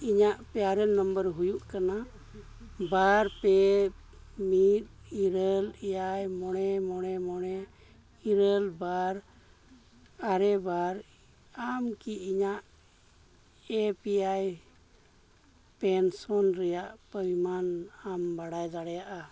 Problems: none marked